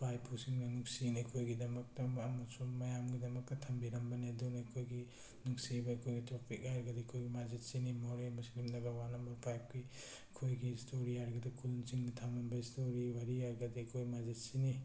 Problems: none marked